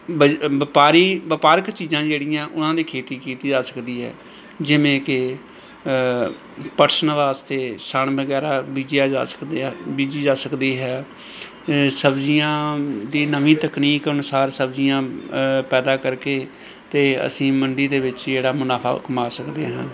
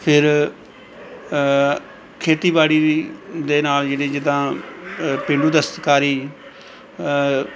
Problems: background sounds at intervals, background conversations at intervals